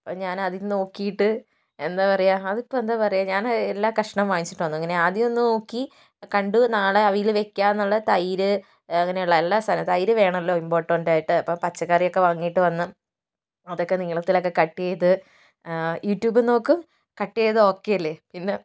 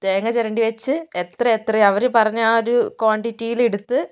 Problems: none marked